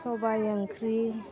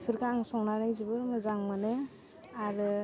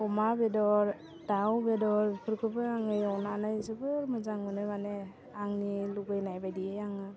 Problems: constant background noise